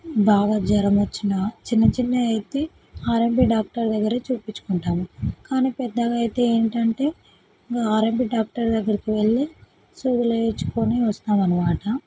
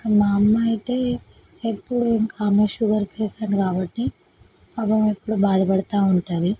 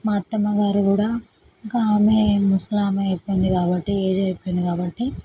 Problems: none marked